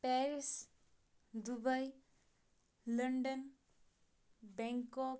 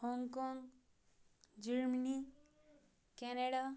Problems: none marked